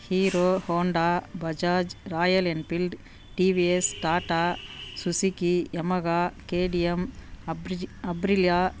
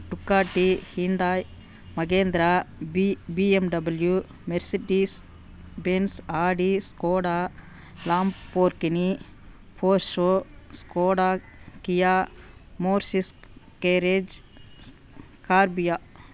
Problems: background sounds at intervals